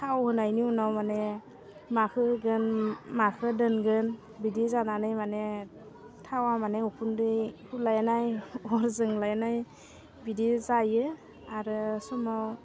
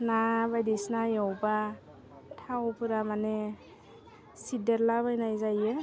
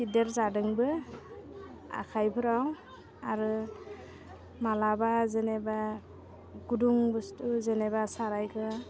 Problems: constant background noise